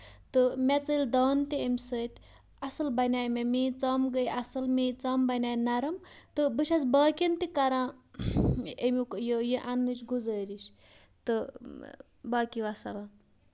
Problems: none marked